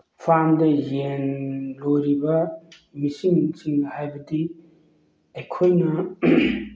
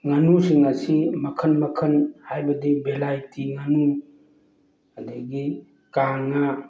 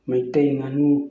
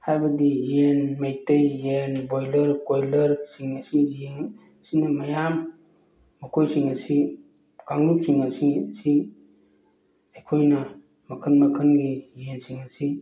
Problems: background sounds at intervals